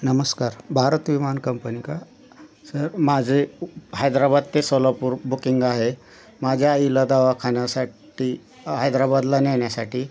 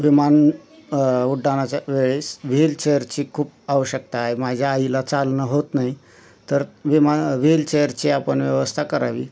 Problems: none marked